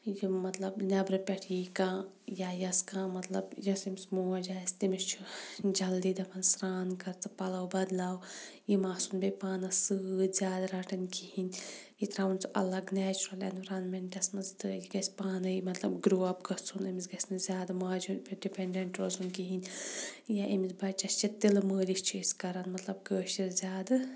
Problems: none marked